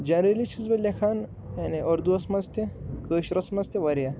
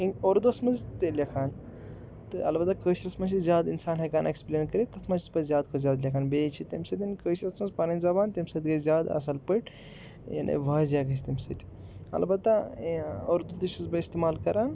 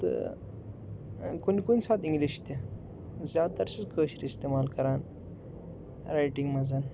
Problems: background sounds at intervals